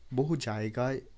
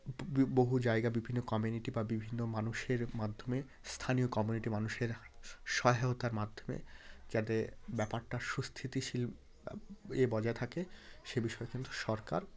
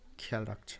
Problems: constant background noise, background conversations at intervals